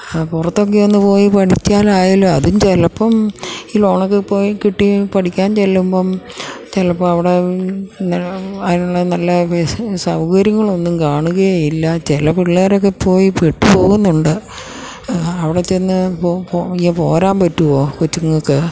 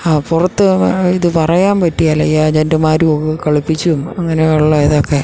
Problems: low volume